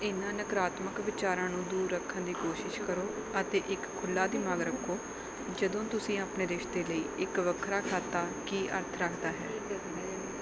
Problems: background sounds at intervals